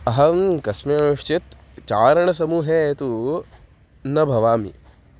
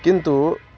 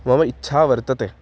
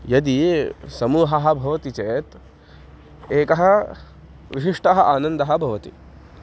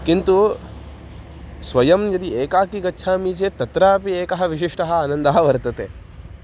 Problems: background sounds at intervals